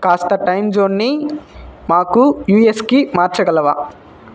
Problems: constant background noise